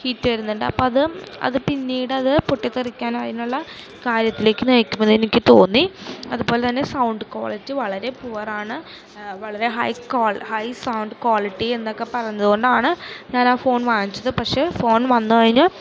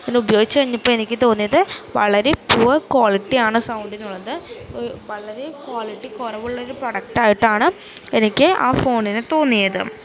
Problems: constant background noise, low volume